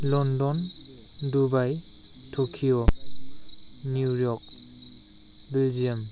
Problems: constant background noise